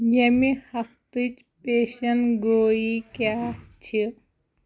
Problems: none marked